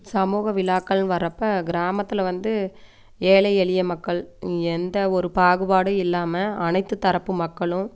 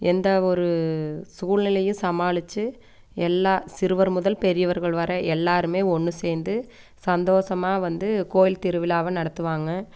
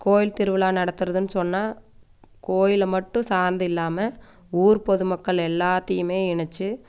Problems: none marked